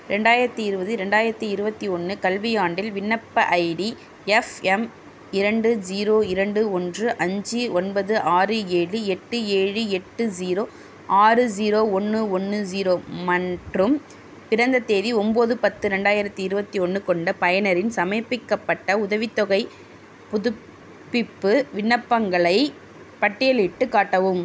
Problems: none marked